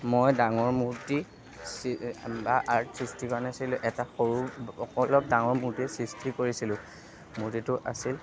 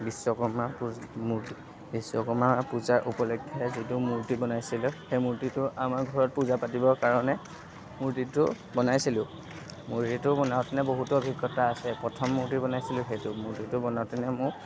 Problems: background sounds at intervals, background conversations at intervals